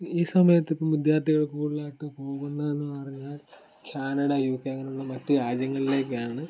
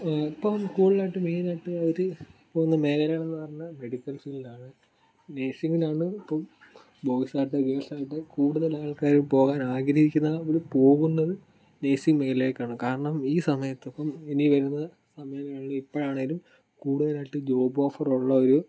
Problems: background sounds at intervals